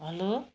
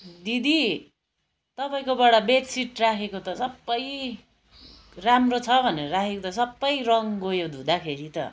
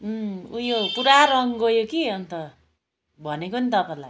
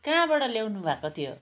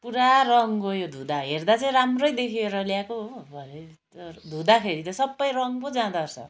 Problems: background sounds at intervals